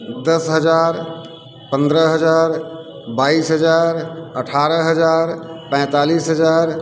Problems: constant background noise